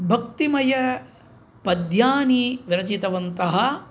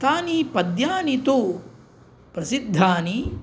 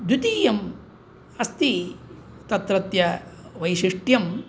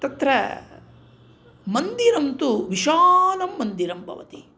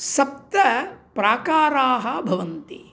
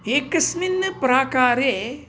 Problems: none marked